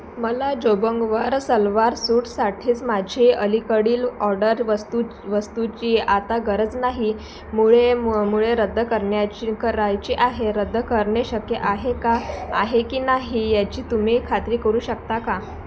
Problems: constant background noise